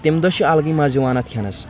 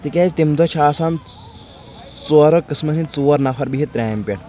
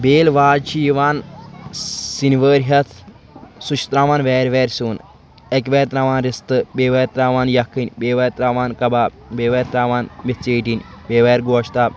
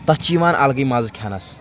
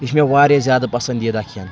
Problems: constant background noise